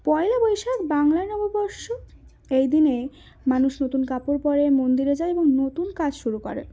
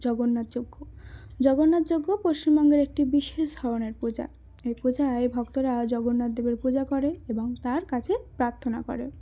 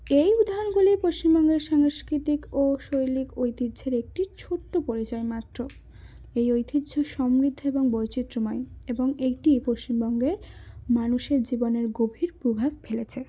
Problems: none marked